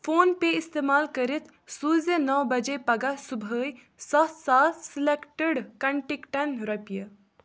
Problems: none marked